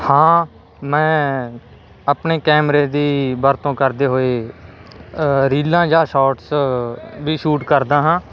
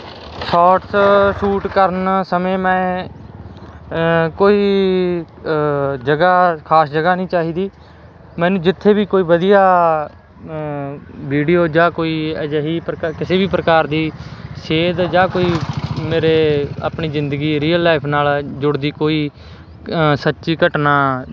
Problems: constant background noise